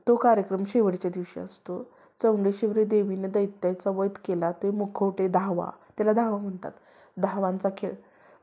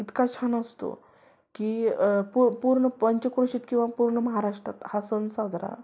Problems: background sounds at intervals